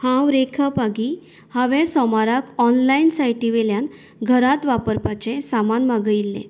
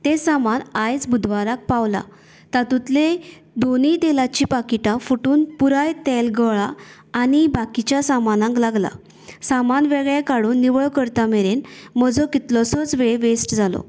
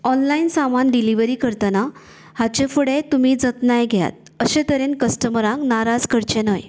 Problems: constant background noise